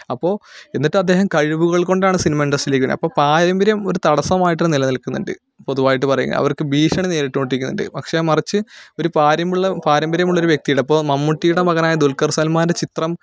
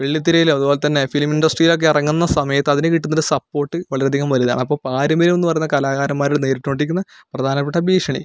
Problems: none marked